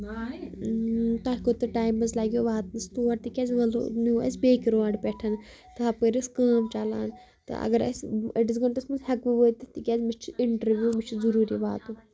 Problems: continuous background conversations